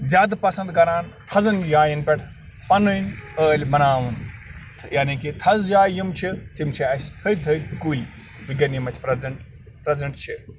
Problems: constant background noise